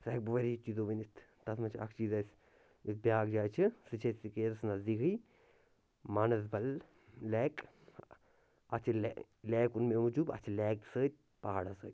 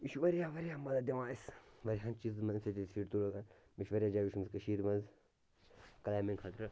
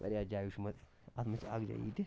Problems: none marked